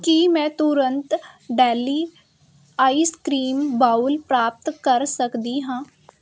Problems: constant background noise